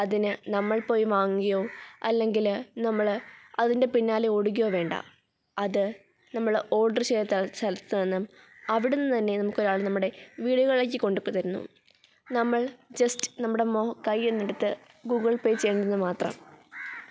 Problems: background sounds at intervals